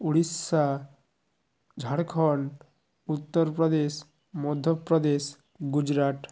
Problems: background sounds at intervals